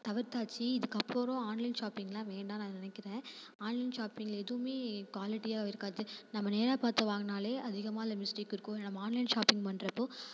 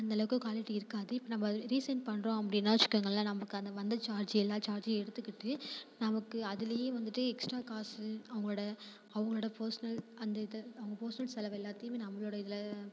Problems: constant background noise, background conversations at intervals